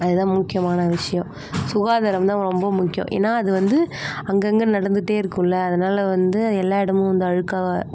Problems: constant background noise